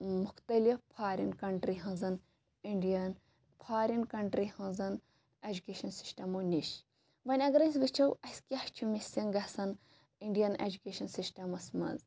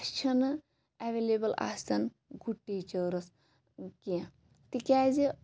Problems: background sounds at intervals